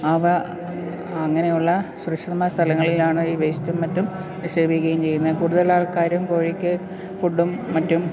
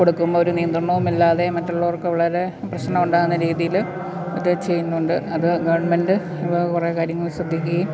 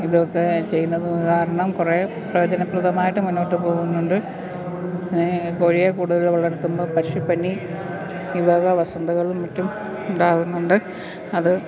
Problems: constant background noise